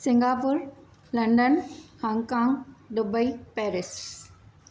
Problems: none marked